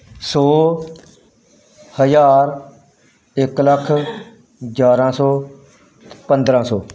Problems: background sounds at intervals